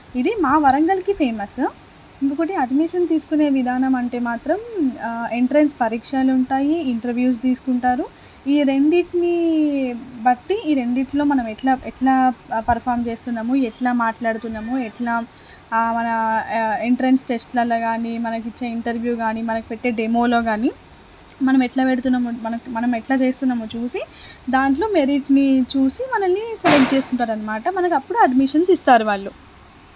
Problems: constant background noise